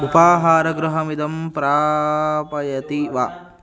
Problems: continuous background conversations